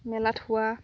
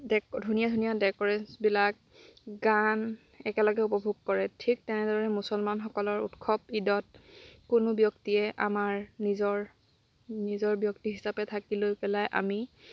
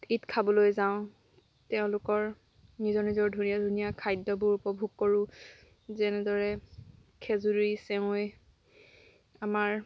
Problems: background sounds at intervals